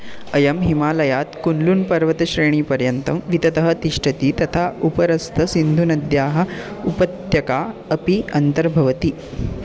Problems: constant background noise